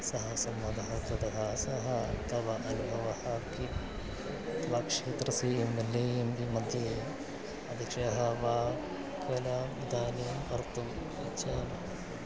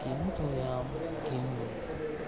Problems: background sounds at intervals, low volume